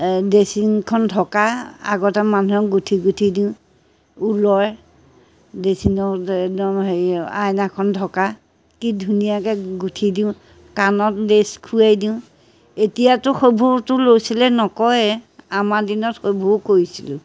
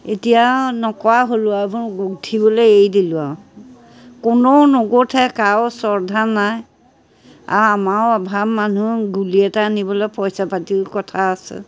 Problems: none marked